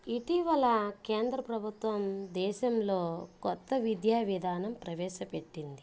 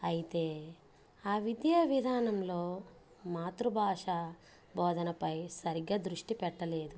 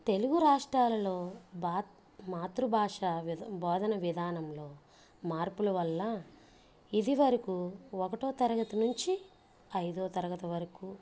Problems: low volume